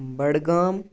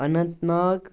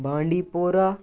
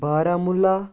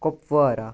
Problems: none marked